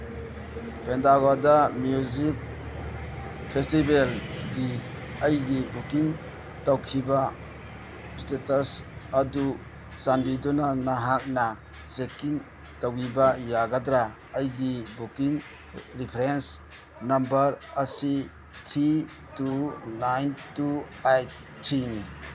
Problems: background sounds at intervals